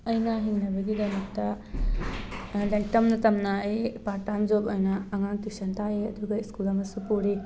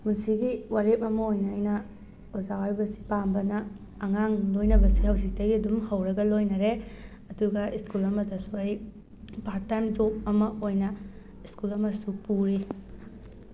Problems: background sounds at intervals